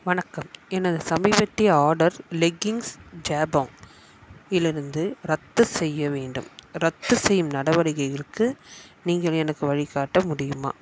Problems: constant background noise